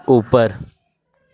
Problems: constant background noise